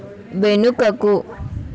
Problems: constant background noise, continuous background conversations